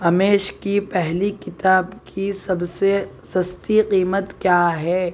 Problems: none marked